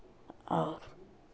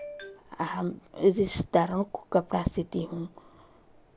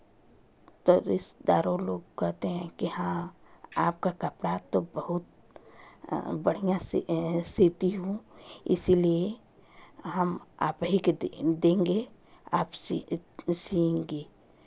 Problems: constant background noise